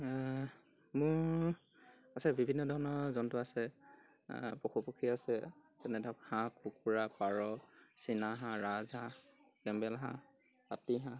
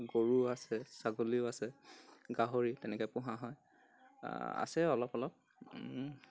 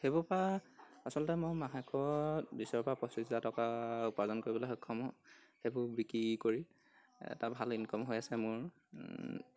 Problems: background sounds at intervals